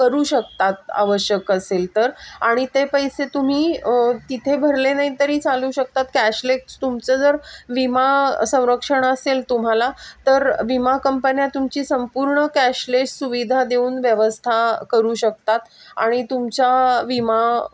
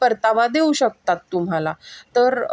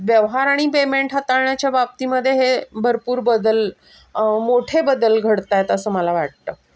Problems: constant background noise, background conversations at intervals